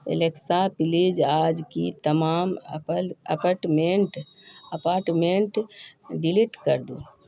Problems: constant background noise